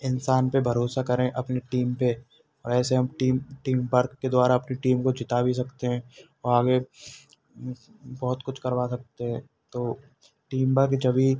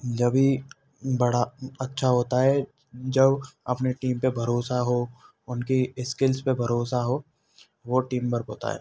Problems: none marked